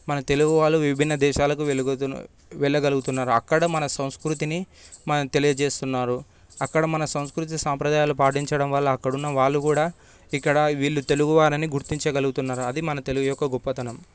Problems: constant background noise